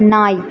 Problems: constant background noise